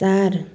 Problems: none marked